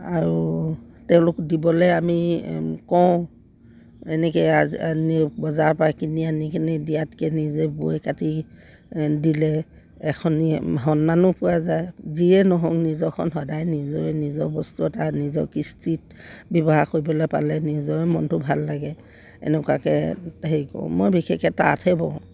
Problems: background sounds at intervals